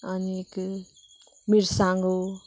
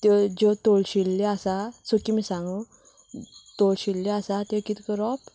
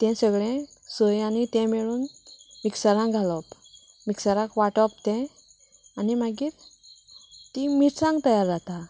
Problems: none marked